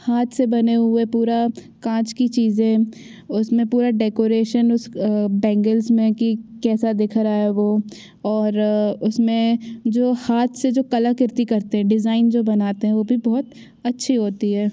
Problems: background sounds at intervals